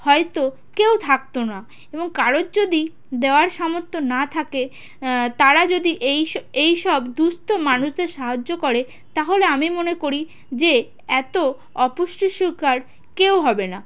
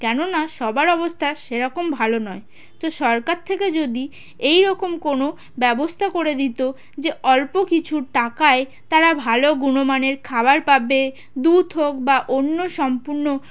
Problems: constant background noise, background conversations at intervals